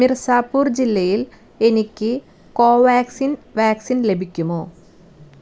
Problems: none marked